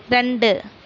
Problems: none marked